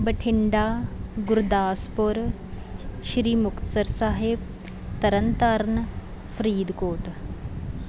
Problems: background sounds at intervals